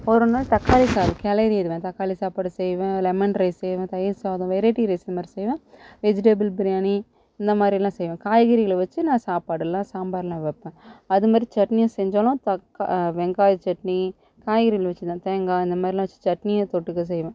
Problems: none marked